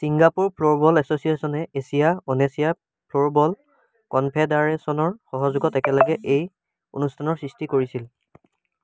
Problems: background sounds at intervals